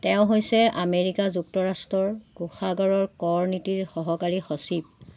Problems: none marked